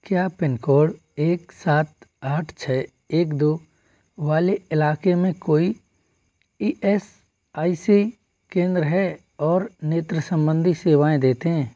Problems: none marked